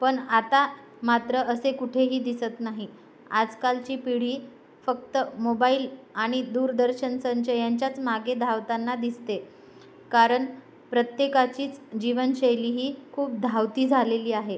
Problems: background sounds at intervals